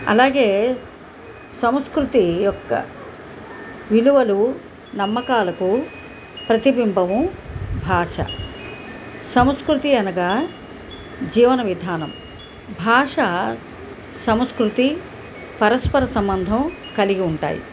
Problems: background sounds at intervals